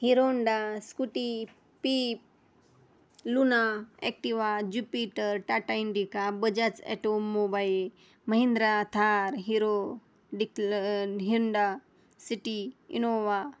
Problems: none marked